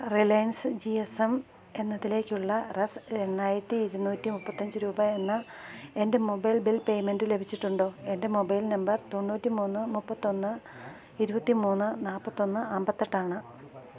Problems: constant background noise, low volume